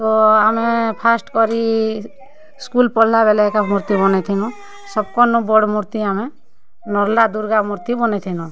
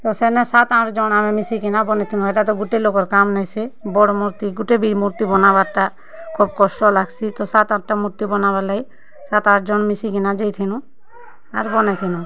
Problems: constant background noise